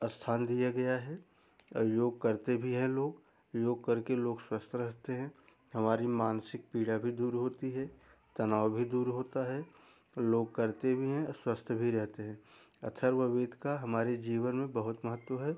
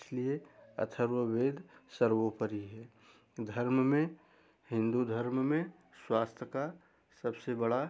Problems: background sounds at intervals